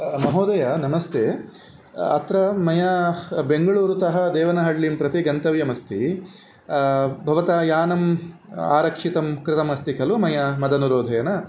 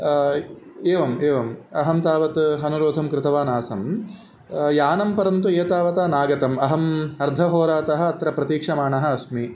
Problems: constant background noise